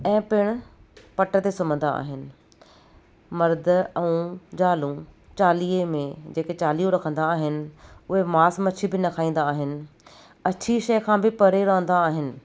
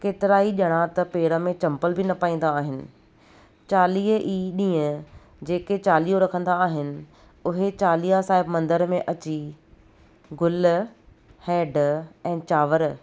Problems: none marked